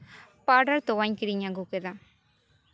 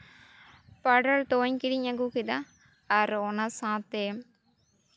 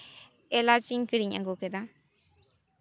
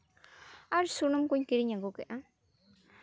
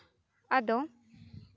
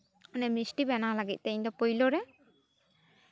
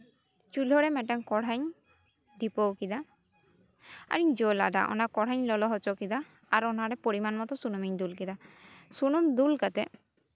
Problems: none marked